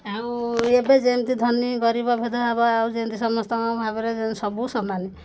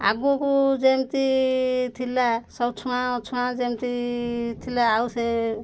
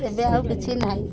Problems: background sounds at intervals